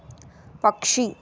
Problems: background sounds at intervals